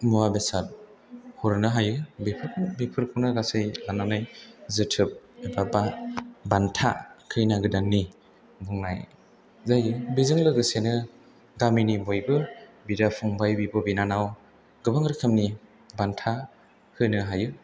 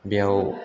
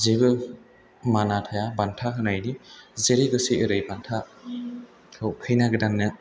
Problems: background conversations at intervals